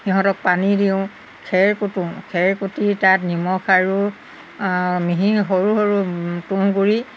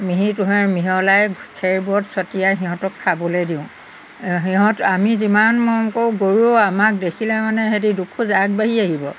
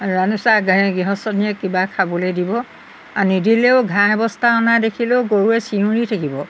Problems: background sounds at intervals